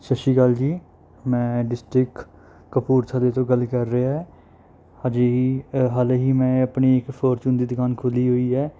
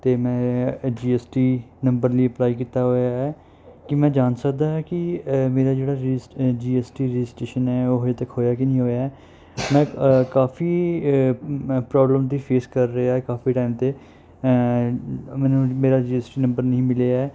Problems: none marked